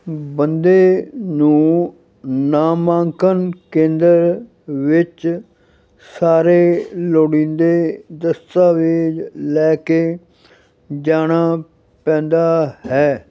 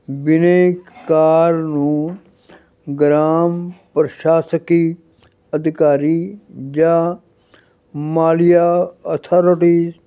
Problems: none marked